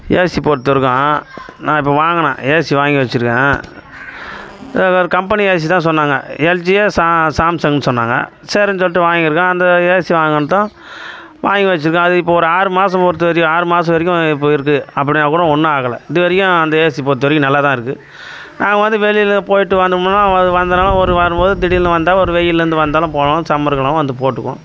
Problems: constant background noise